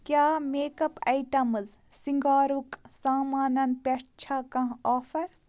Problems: constant background noise